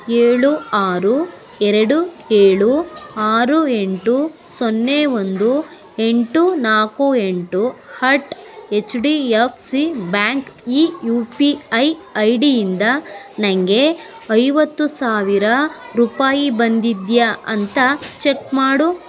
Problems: background sounds at intervals